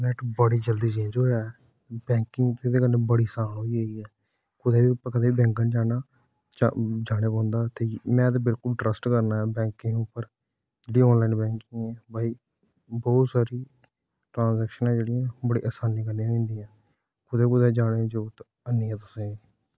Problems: background sounds at intervals